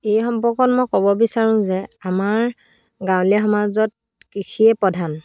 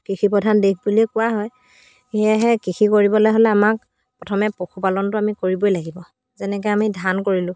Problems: background sounds at intervals